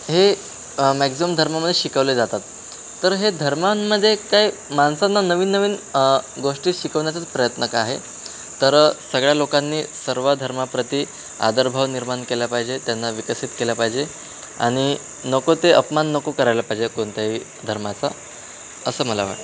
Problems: constant background noise, background conversations at intervals